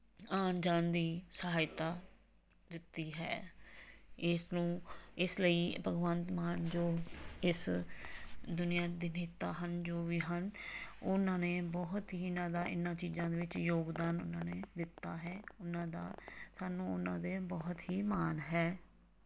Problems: background sounds at intervals